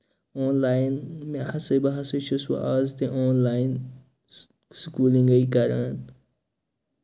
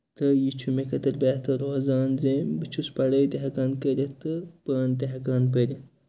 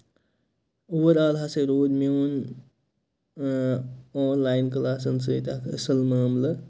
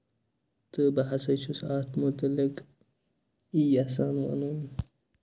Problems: constant background noise